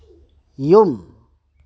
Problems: low volume